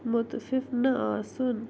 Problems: constant background noise